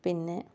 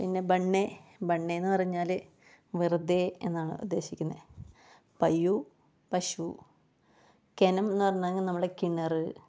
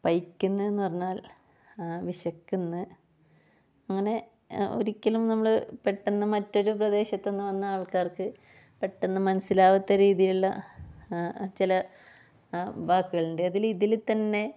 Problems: none marked